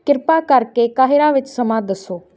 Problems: background sounds at intervals